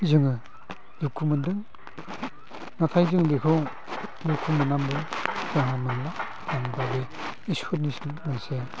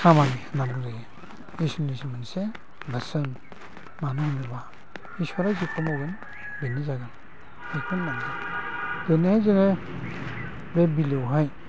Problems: low volume